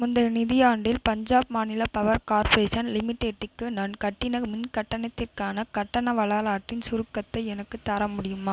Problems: none marked